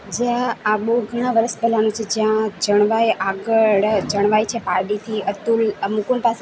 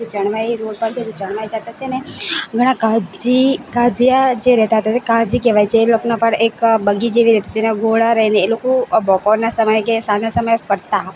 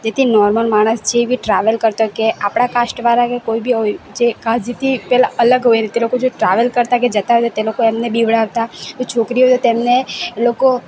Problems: constant background noise